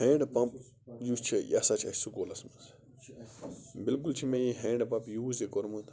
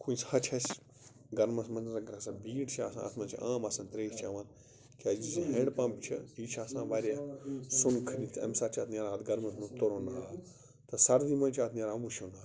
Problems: background sounds at intervals, background conversations at intervals